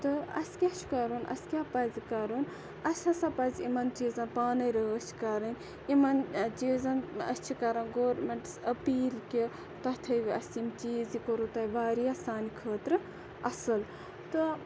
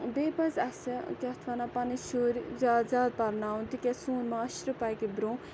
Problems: constant background noise